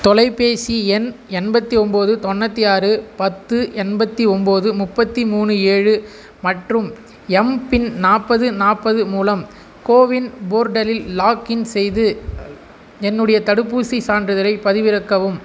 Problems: constant background noise